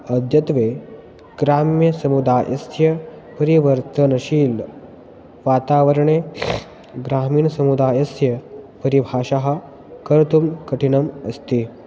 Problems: background sounds at intervals